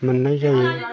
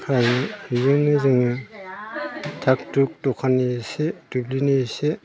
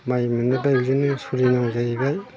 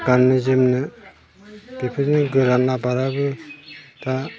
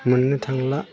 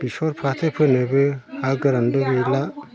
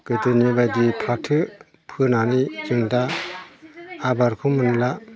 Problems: constant background noise